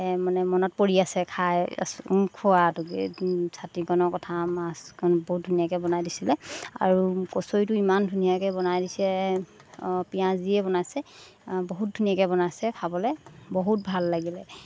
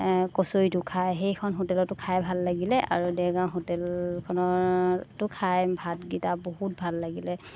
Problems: constant background noise